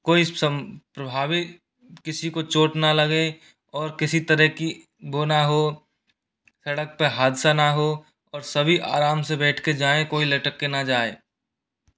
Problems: background sounds at intervals